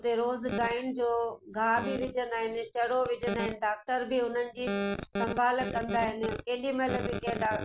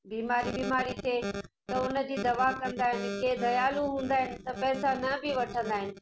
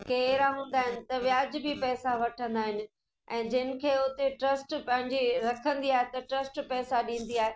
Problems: constant background noise, echo